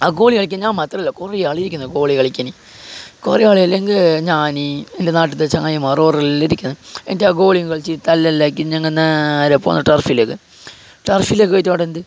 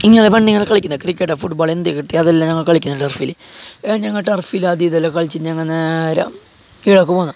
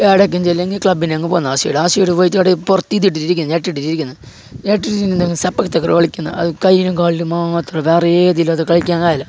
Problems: none marked